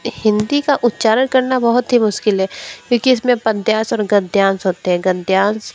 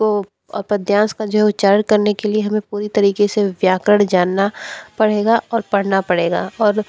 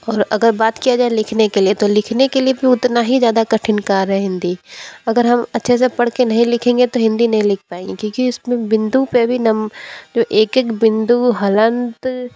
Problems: constant background noise